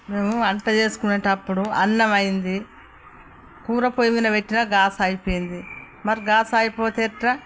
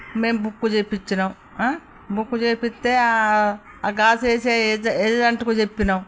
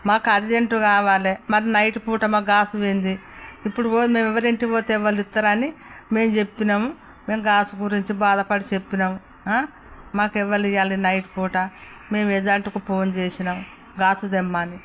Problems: none marked